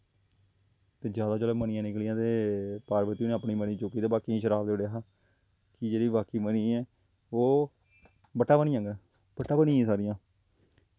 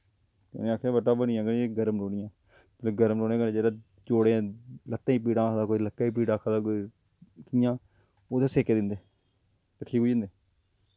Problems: low volume